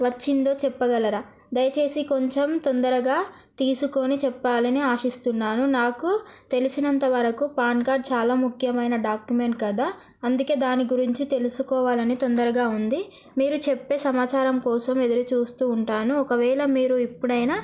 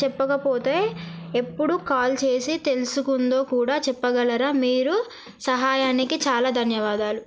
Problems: none marked